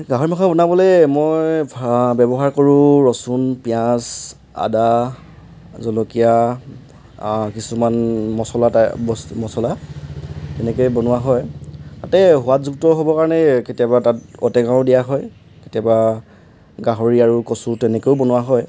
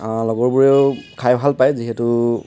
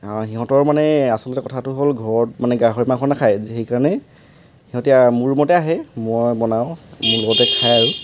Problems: constant background noise